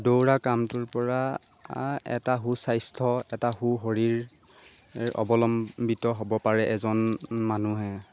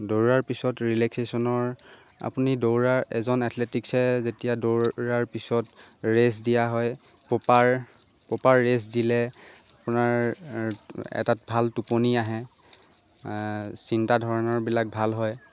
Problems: constant background noise